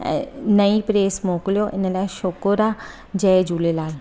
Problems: constant background noise